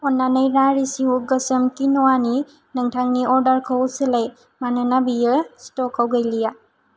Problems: none marked